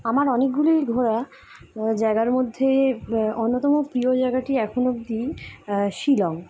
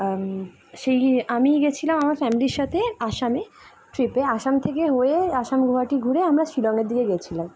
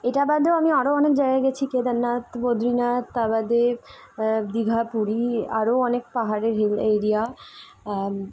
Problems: constant background noise